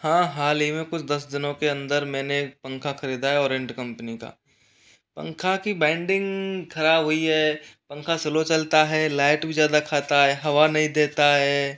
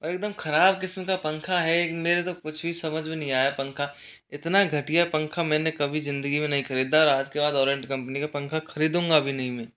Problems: none marked